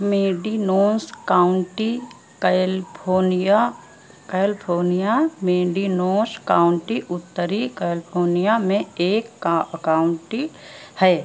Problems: constant background noise